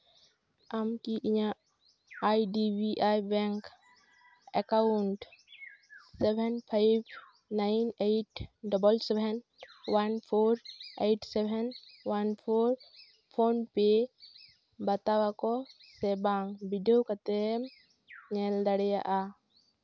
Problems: none marked